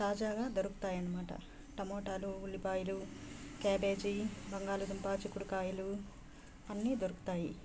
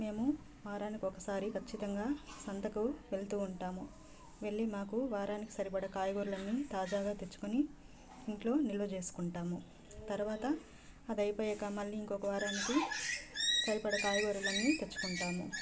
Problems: constant background noise, background conversations at intervals